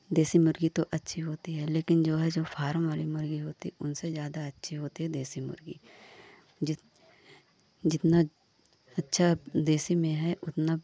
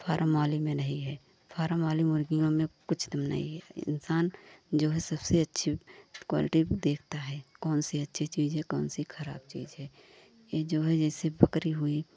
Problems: none marked